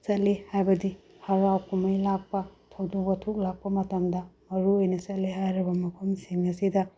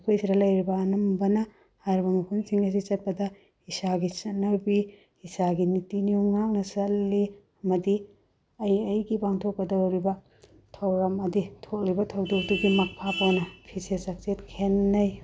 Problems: low volume